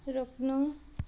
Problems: none marked